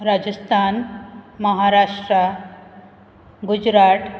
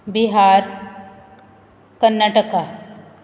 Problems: background sounds at intervals